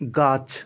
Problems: constant background noise, background conversations at intervals